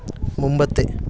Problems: constant background noise